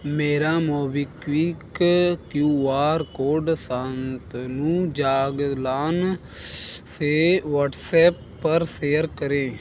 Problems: none marked